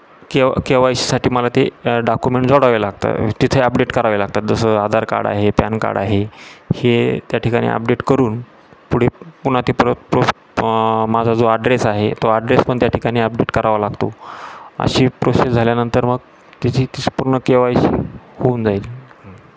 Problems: constant background noise